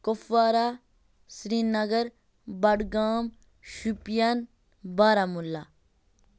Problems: background sounds at intervals